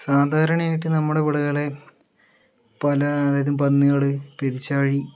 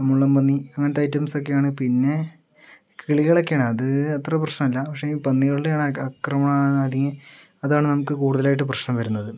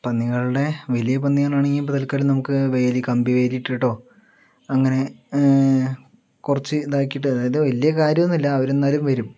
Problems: none marked